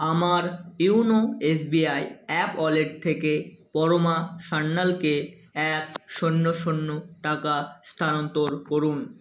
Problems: constant background noise